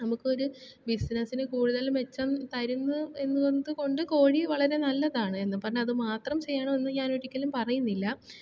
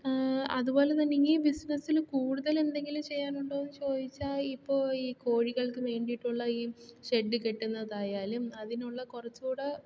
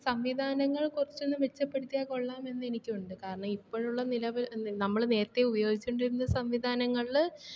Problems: none marked